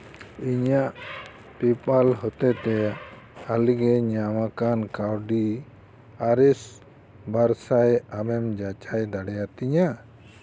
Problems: background sounds at intervals